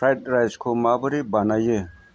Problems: none marked